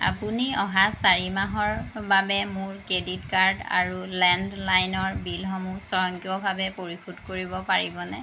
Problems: constant background noise